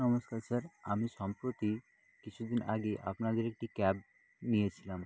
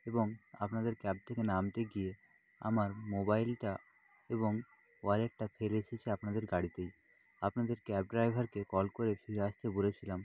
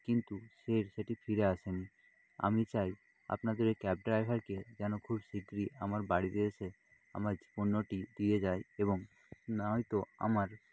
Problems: none marked